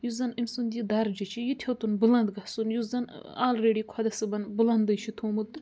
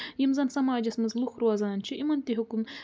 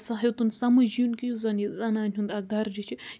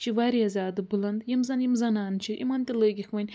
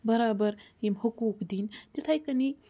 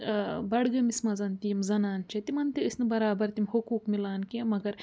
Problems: none marked